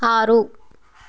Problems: none marked